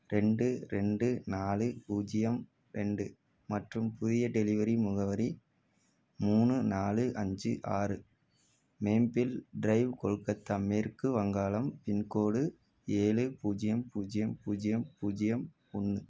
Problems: none marked